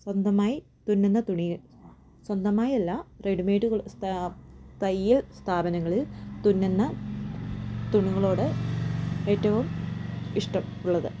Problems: background sounds at intervals